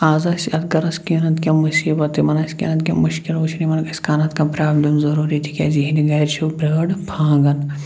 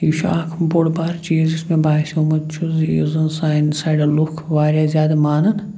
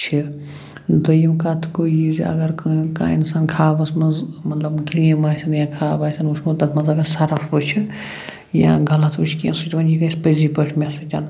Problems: none marked